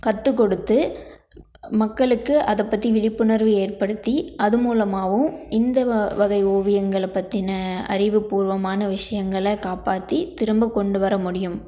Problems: none marked